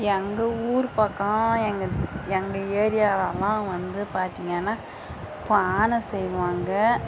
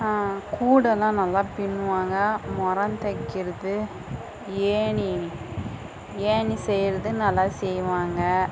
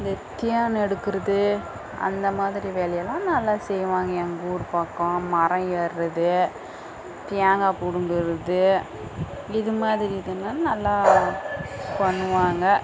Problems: none marked